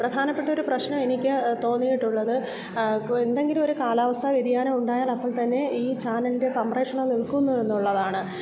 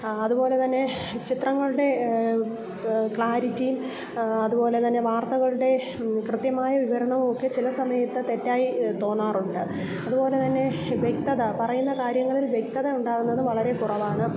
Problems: background sounds at intervals, low volume